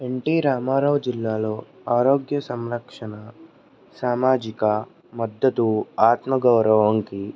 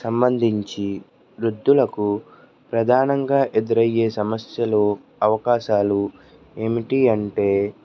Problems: background conversations at intervals